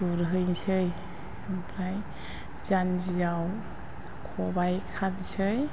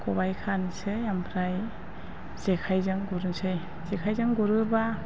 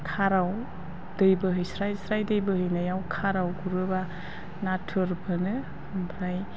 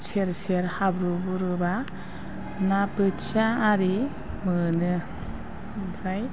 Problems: low volume